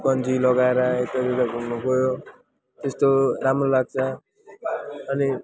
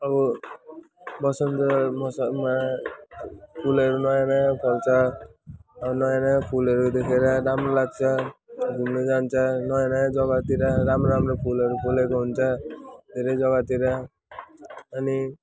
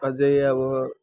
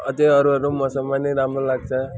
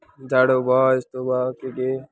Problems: constant background noise, background conversations at intervals